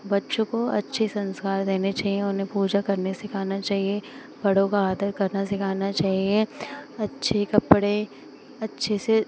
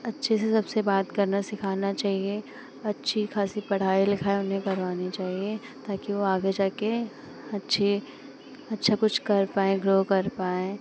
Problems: constant background noise